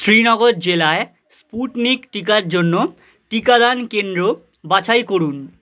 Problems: none marked